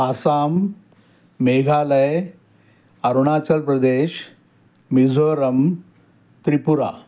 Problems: constant background noise